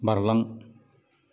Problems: low volume